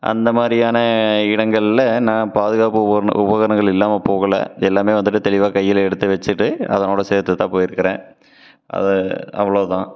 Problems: none marked